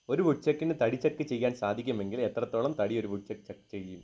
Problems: low volume